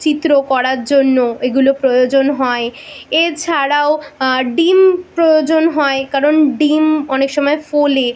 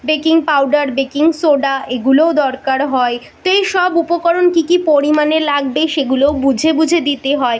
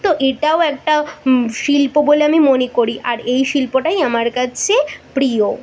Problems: background sounds at intervals